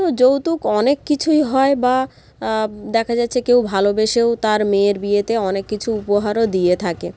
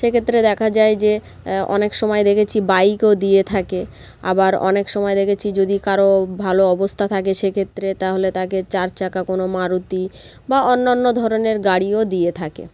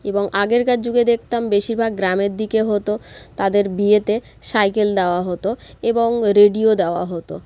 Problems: constant background noise